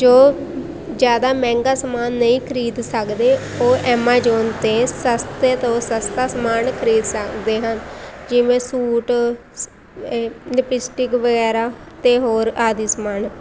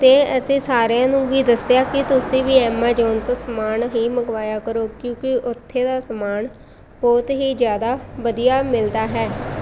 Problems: none marked